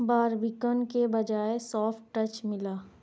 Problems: constant background noise